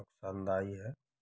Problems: background sounds at intervals